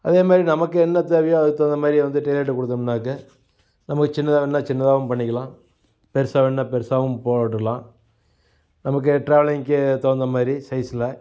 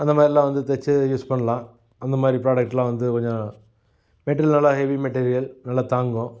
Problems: background sounds at intervals